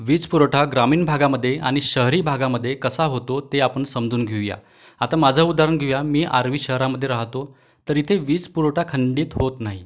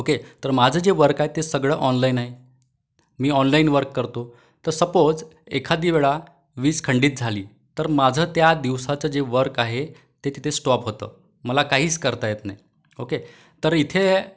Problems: background sounds at intervals